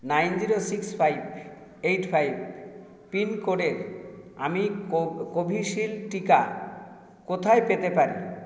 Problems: echo